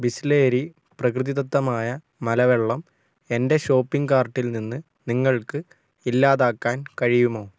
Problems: none marked